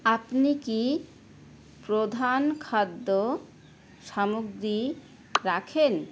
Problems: constant background noise